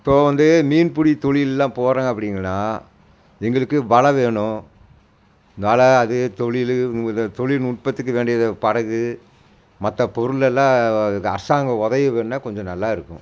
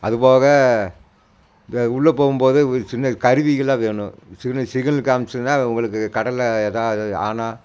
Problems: none marked